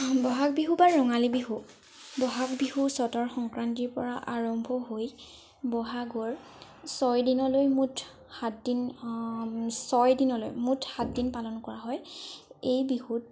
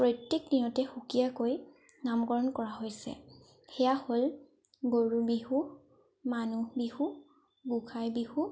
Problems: background sounds at intervals